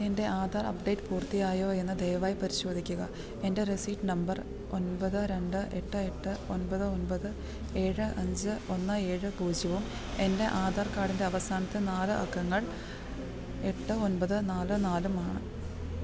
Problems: constant background noise, low volume